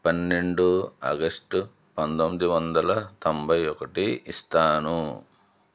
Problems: none marked